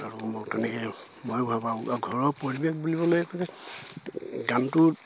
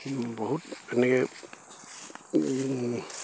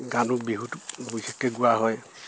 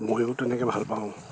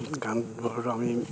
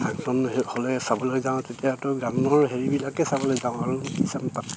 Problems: none marked